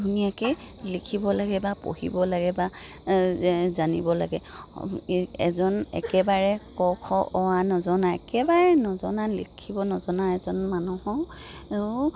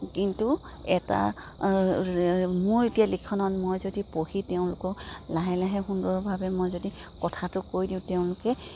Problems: none marked